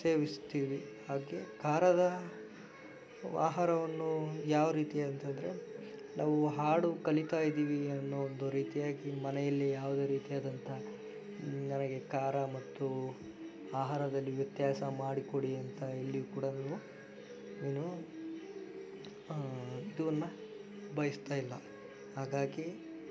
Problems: background sounds at intervals